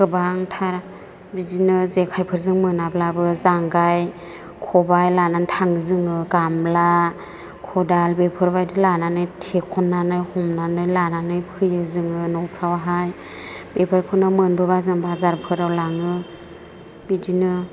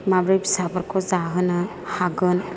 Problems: none marked